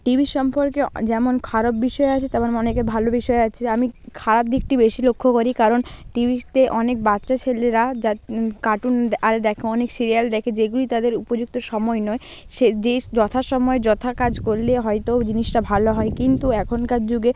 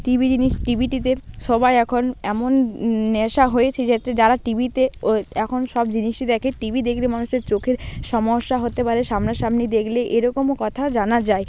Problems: constant background noise, background conversations at intervals